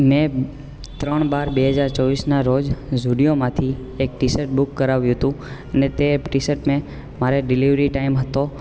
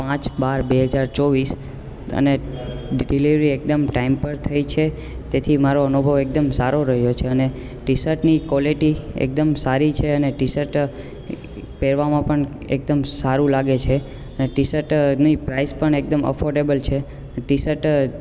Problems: constant background noise